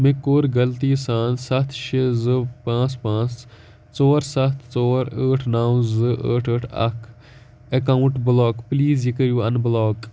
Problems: background sounds at intervals